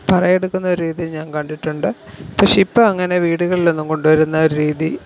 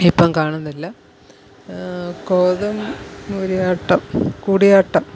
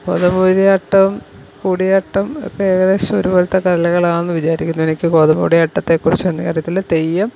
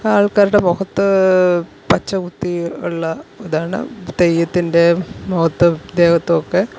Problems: constant background noise